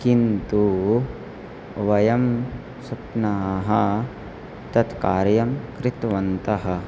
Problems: constant background noise